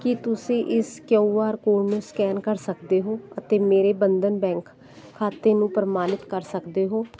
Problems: constant background noise